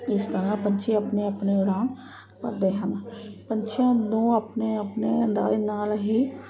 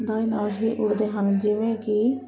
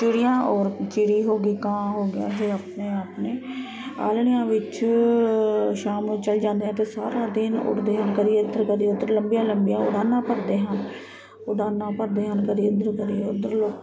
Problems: constant background noise